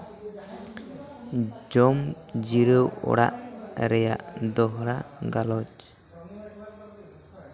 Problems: continuous background conversations